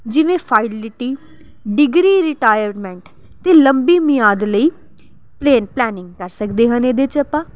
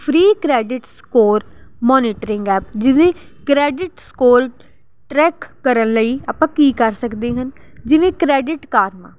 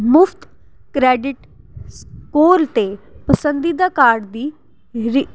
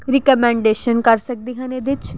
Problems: none marked